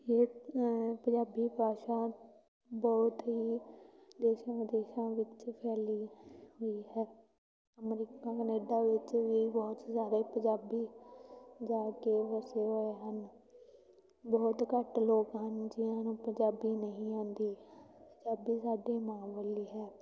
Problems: background sounds at intervals, continuous background conversations